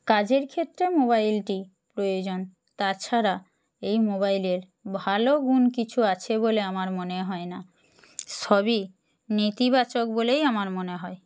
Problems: constant background noise